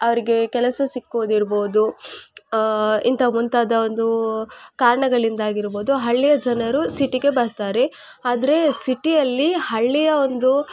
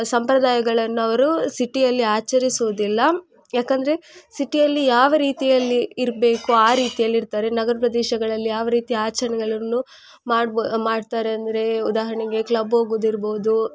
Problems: constant background noise